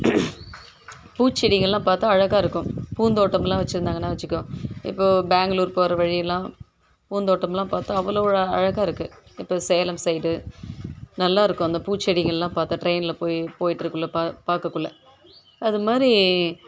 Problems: background sounds at intervals